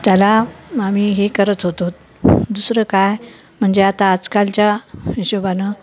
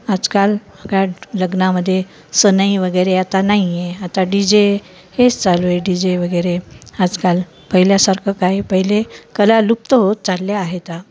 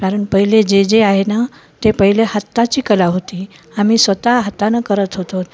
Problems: constant background noise, continuous background conversations